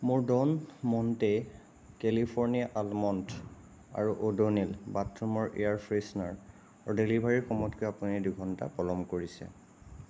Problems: constant background noise